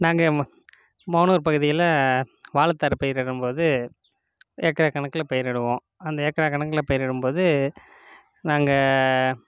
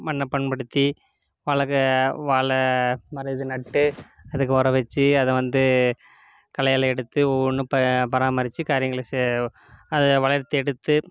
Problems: background sounds at intervals